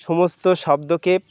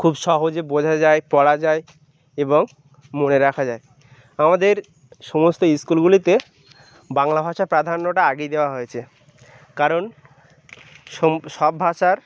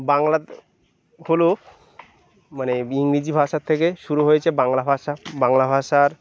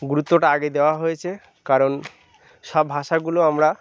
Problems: none marked